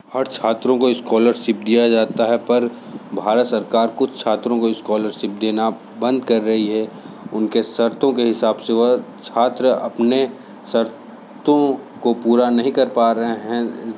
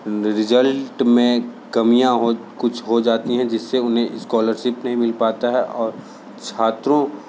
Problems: constant background noise